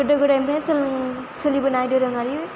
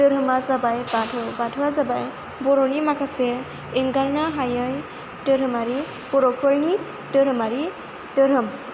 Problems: constant background noise